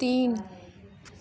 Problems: constant background noise, continuous background conversations